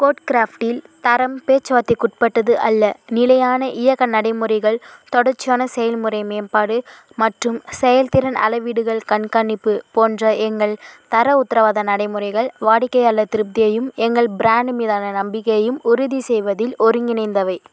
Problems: constant background noise